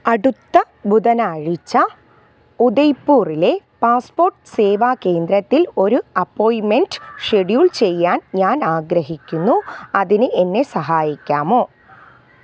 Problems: background sounds at intervals